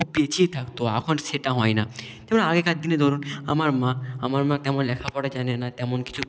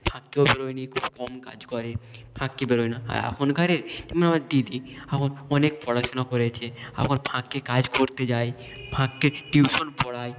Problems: background sounds at intervals